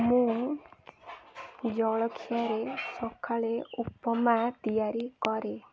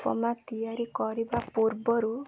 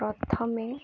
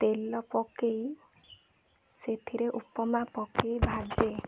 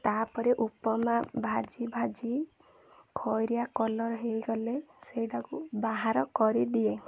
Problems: constant background noise, continuous background conversations